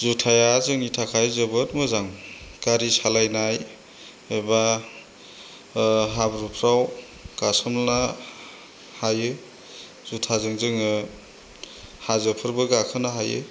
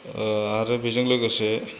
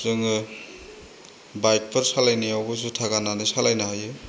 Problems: constant background noise